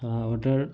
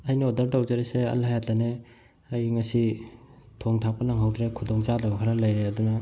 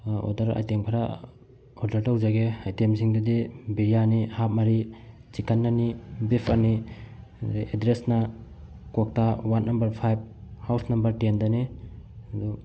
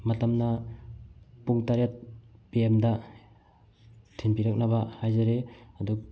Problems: background sounds at intervals